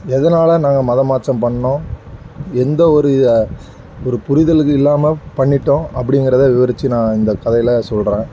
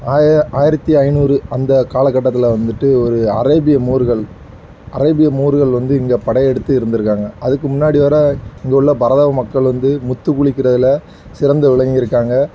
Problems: none marked